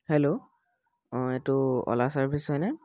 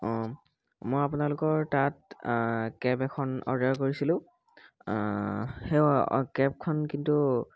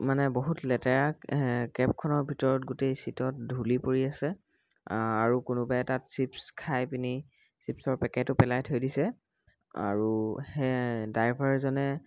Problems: background sounds at intervals